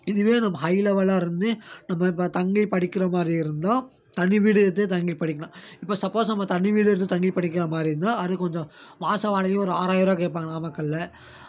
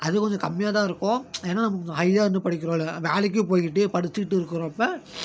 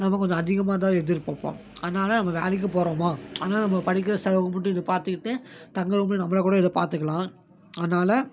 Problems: none marked